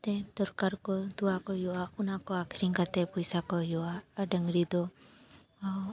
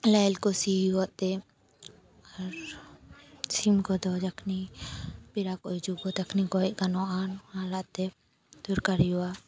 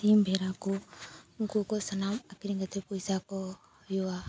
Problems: constant background noise